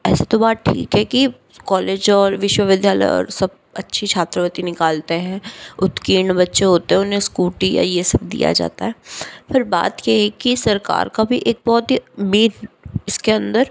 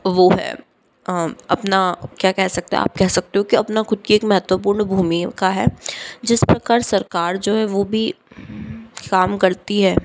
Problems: background sounds at intervals